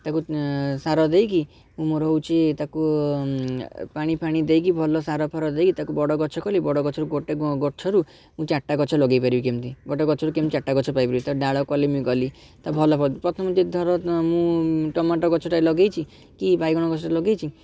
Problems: background sounds at intervals, background conversations at intervals